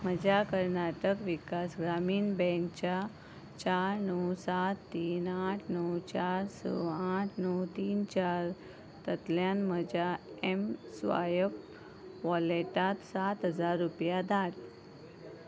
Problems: constant background noise